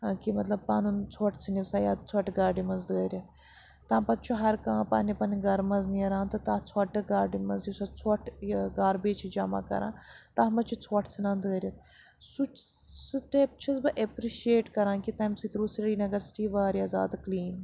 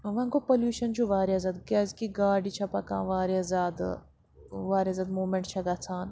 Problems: constant background noise